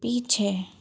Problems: background sounds at intervals